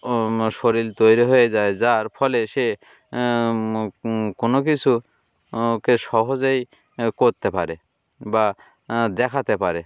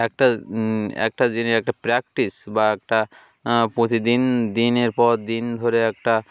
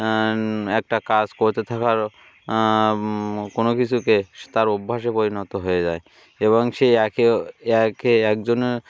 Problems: none marked